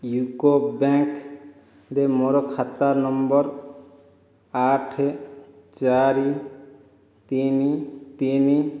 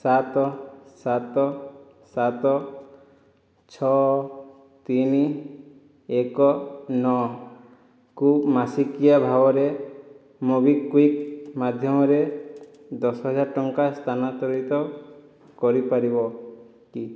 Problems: none marked